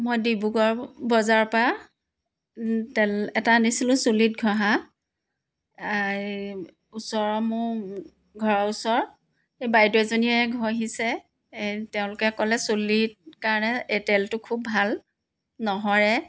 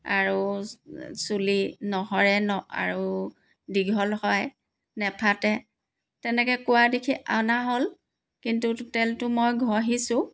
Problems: background sounds at intervals